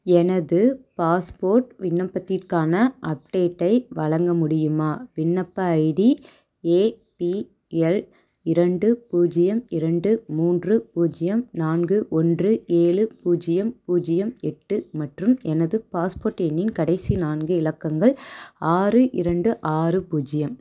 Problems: none marked